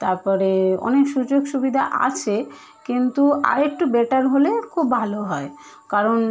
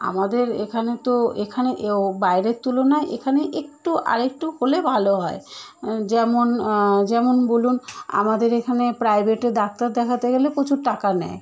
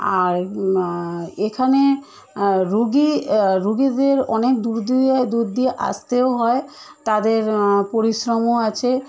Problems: none marked